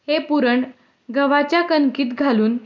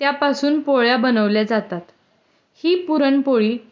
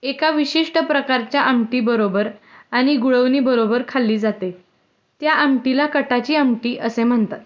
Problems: background sounds at intervals